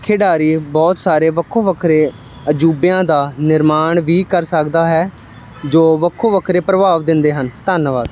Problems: none marked